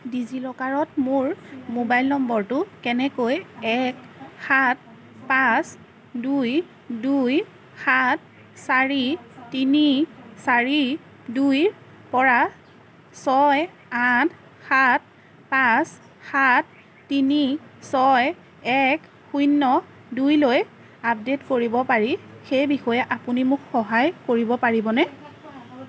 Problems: constant background noise